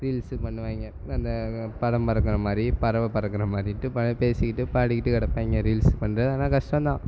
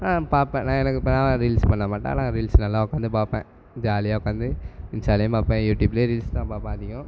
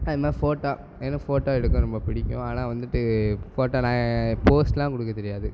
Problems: constant background noise